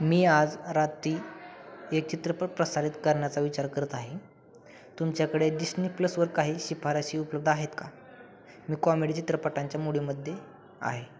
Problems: none marked